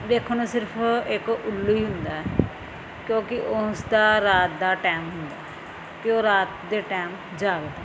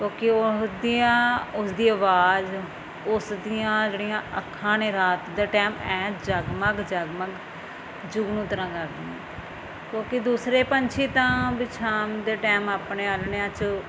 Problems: none marked